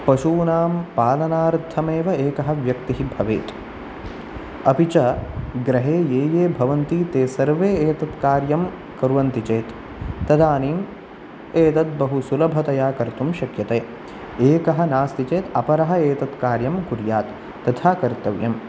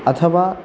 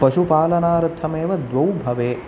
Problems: none marked